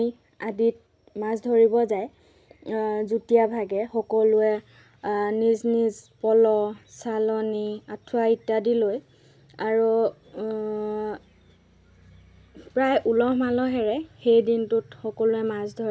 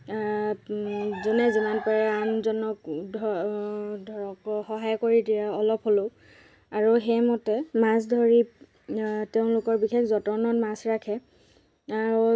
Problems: background sounds at intervals, background conversations at intervals